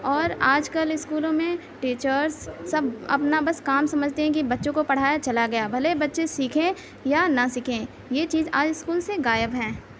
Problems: background sounds at intervals